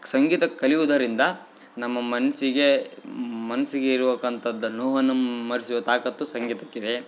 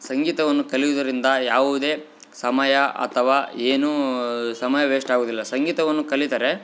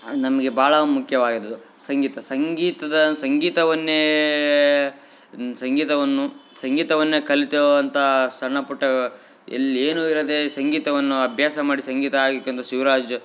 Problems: background sounds at intervals